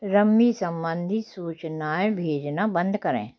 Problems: background sounds at intervals